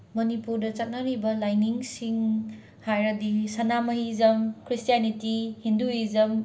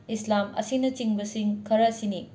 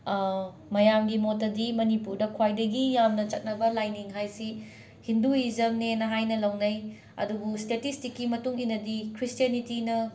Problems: constant background noise